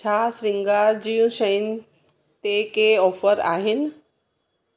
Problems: none marked